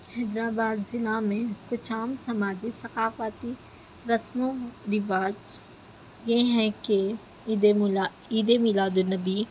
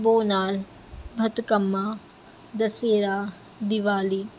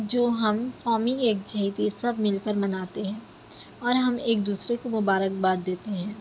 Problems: none marked